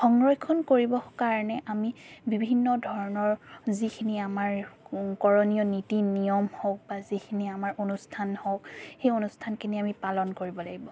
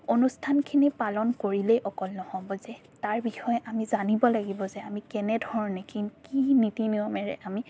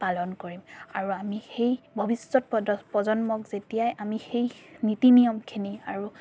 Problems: background sounds at intervals